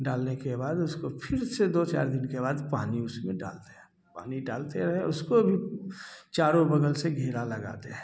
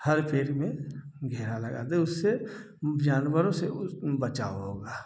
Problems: none marked